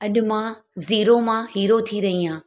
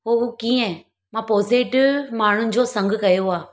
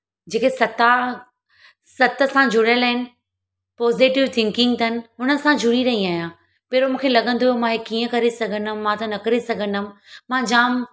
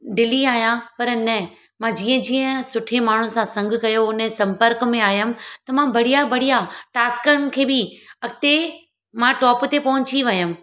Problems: none marked